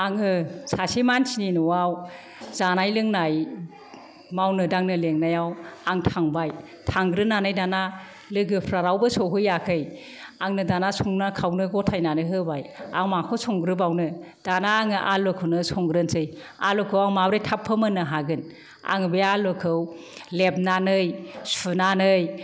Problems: none marked